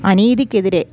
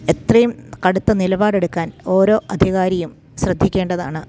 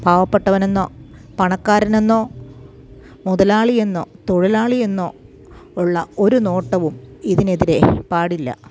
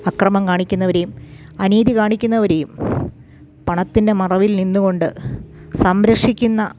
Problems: none marked